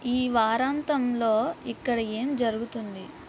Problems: constant background noise